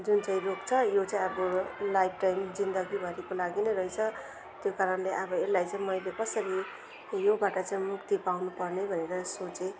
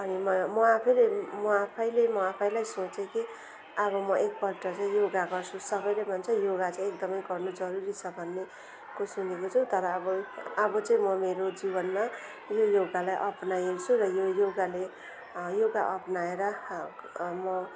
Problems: none marked